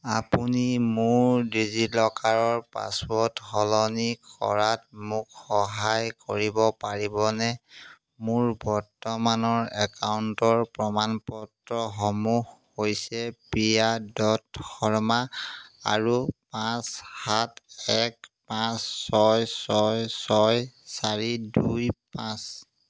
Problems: background sounds at intervals